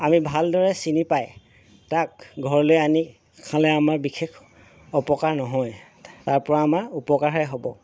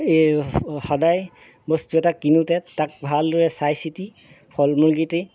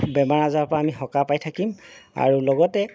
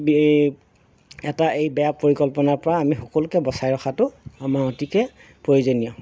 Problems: background sounds at intervals